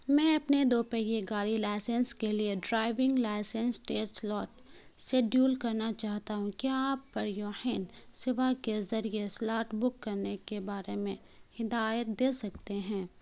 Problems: constant background noise